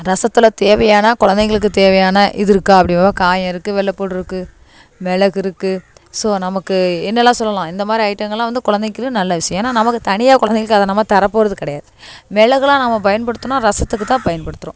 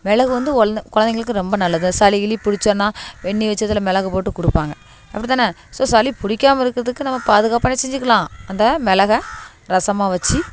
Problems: background sounds at intervals